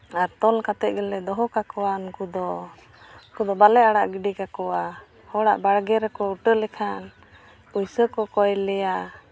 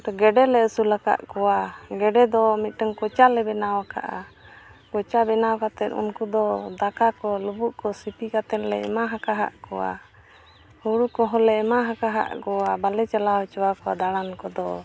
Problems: constant background noise